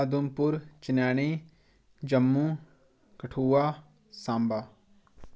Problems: background sounds at intervals